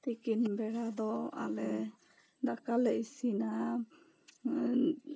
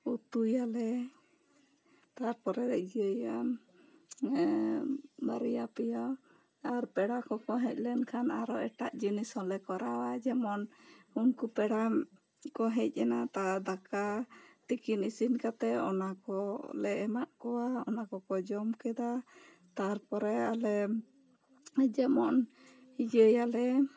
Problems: low volume